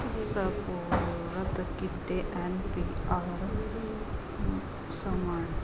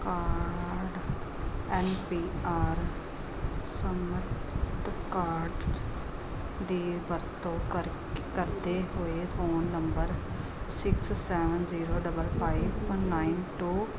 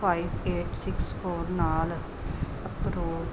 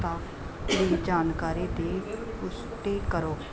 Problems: constant background noise